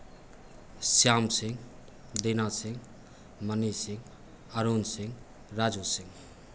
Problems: constant background noise